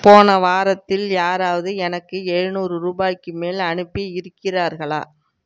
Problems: background sounds at intervals